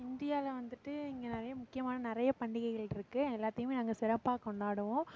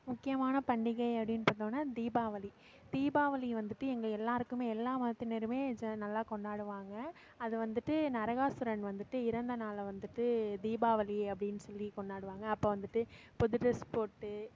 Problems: background sounds at intervals, background conversations at intervals